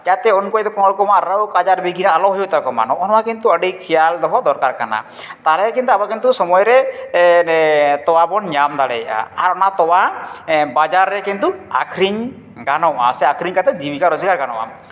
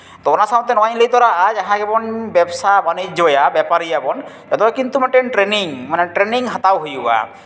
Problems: none marked